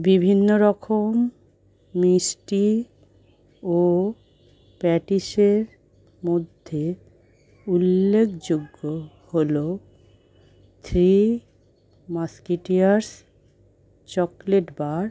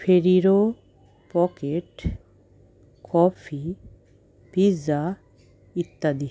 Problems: none marked